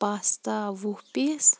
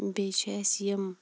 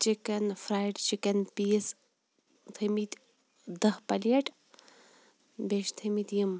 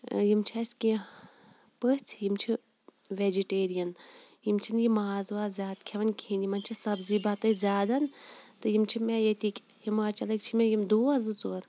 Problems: none marked